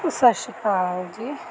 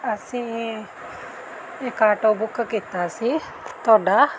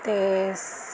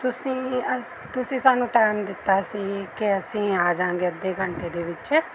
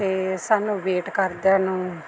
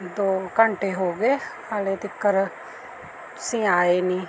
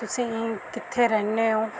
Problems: none marked